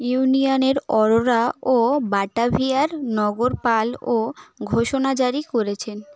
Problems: background conversations at intervals